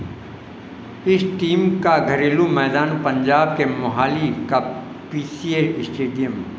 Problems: constant background noise